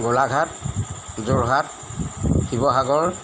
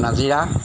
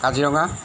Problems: constant background noise